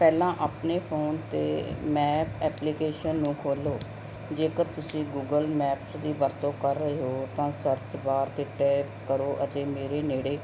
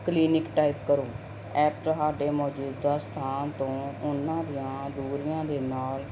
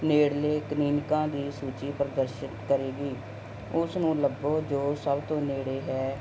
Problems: none marked